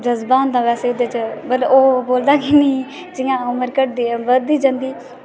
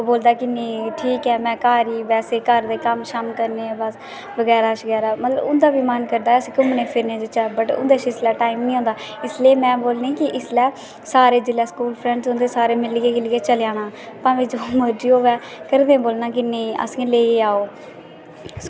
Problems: constant background noise